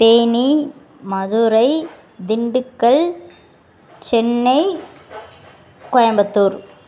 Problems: background sounds at intervals